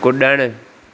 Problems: constant background noise